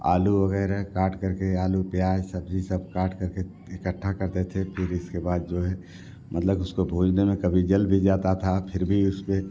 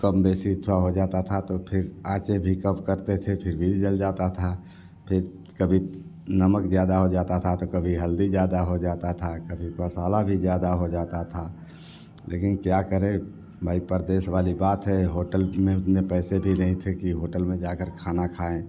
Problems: none marked